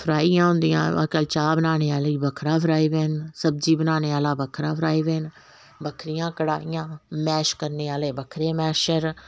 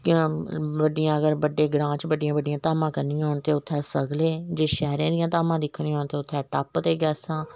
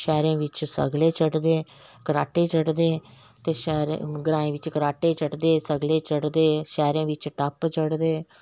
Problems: background sounds at intervals